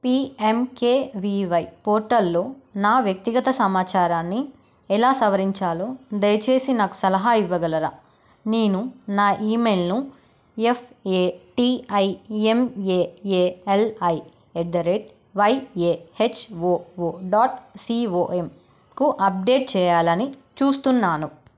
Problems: none marked